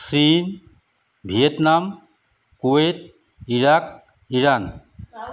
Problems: constant background noise